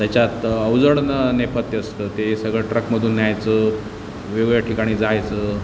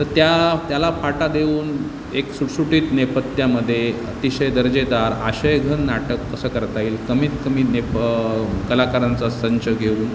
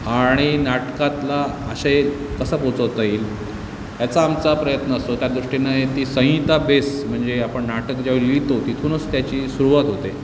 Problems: constant background noise, background conversations at intervals